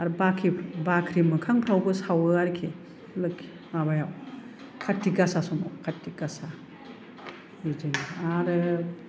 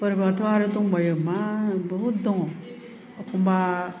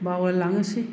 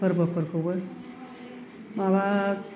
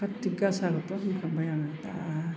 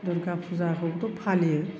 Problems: none marked